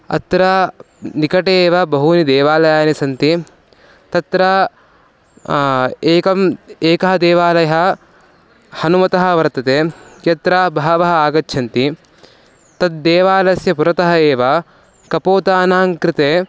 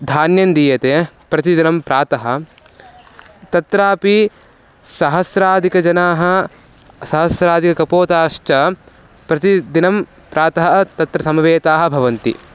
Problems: low volume